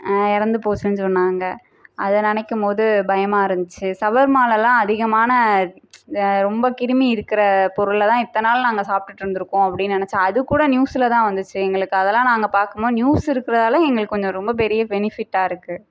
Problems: none marked